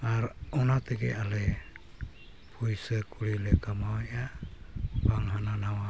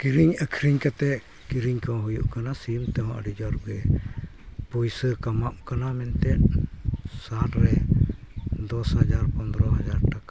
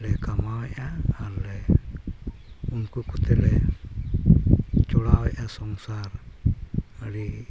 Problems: background sounds at intervals